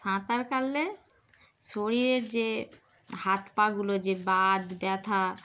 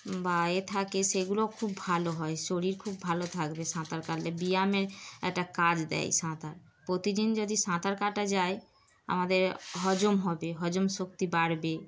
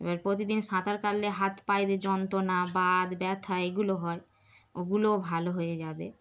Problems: constant background noise